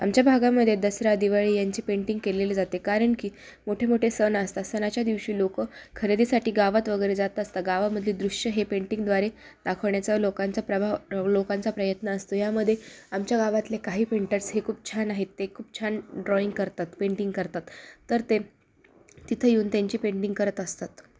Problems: constant background noise, background conversations at intervals